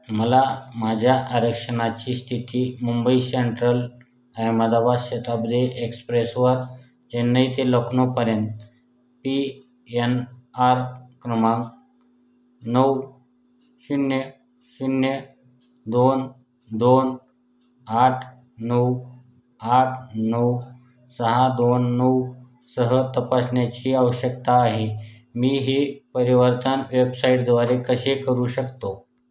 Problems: background sounds at intervals